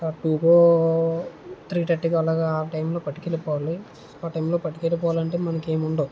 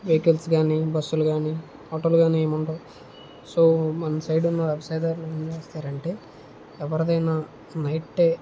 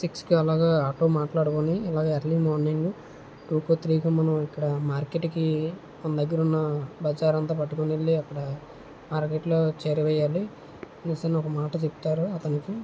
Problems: low volume